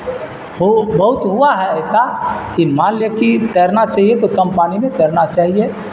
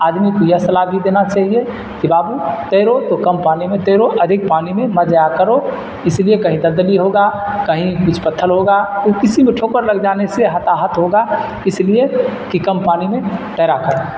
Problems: constant background noise